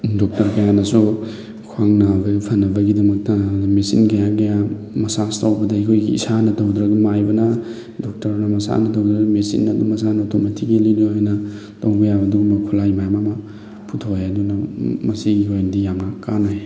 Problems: background sounds at intervals